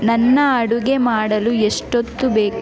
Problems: constant background noise